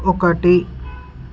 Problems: background sounds at intervals